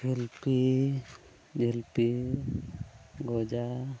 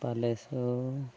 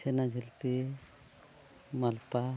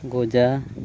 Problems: background sounds at intervals